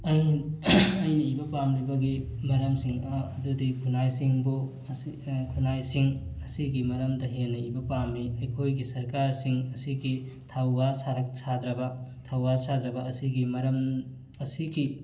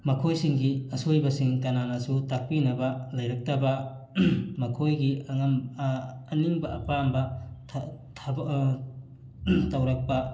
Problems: constant background noise